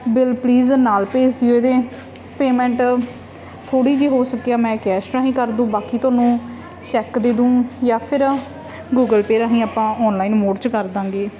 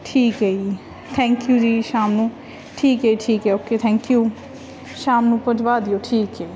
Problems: background sounds at intervals